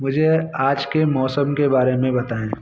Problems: none marked